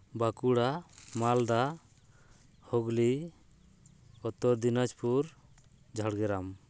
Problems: none marked